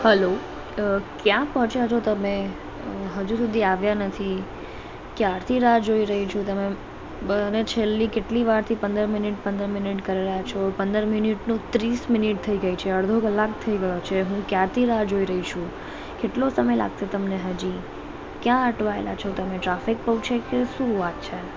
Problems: background sounds at intervals, background conversations at intervals